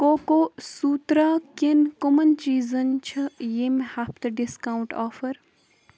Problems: none marked